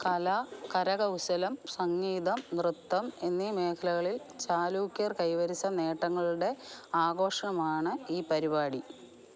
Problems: background sounds at intervals